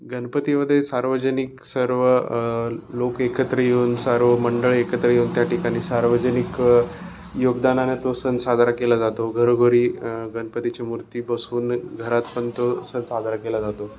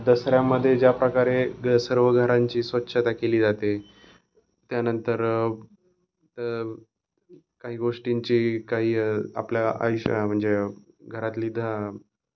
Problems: none marked